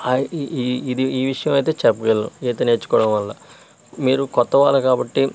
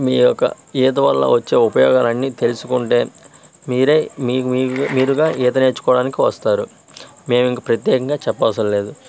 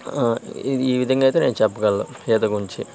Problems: constant background noise